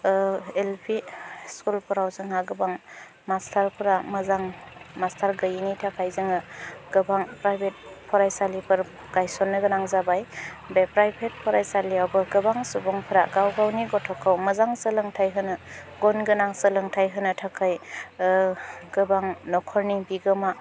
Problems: low volume